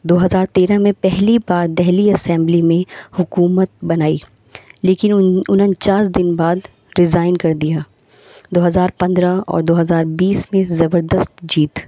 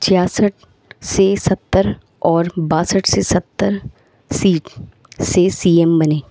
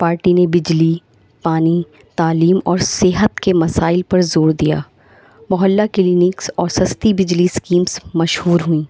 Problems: constant background noise